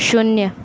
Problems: none marked